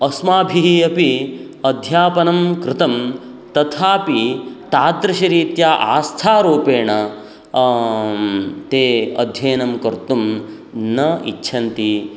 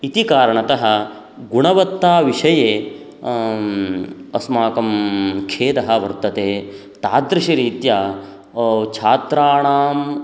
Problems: none marked